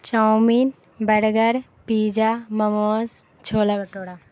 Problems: constant background noise